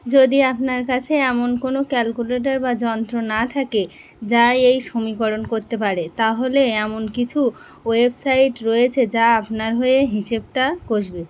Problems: constant background noise